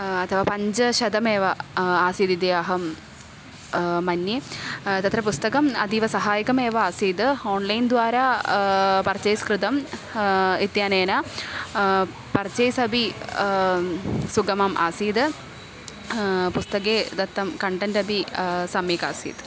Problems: none marked